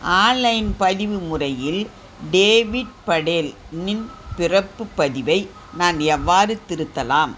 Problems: constant background noise